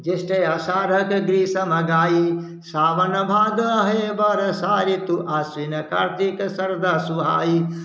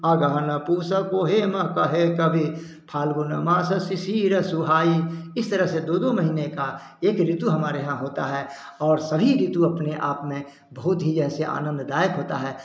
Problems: none marked